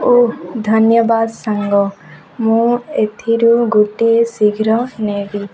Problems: constant background noise, continuous background conversations